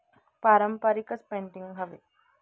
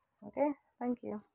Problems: none marked